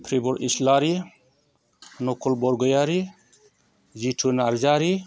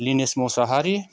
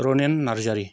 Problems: constant background noise